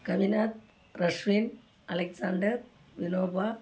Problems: background sounds at intervals